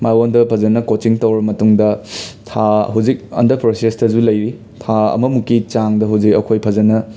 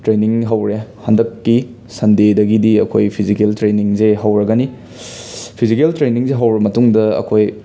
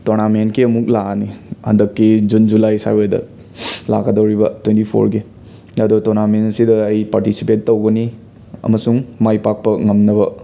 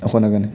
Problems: background sounds at intervals